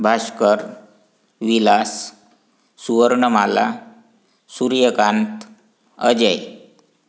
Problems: background sounds at intervals